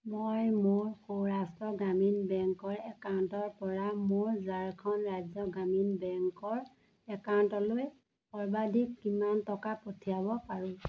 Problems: none marked